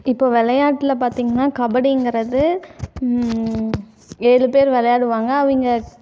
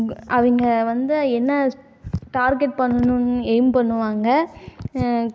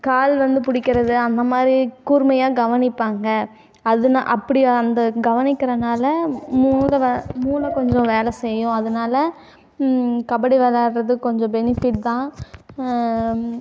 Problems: constant background noise, background conversations at intervals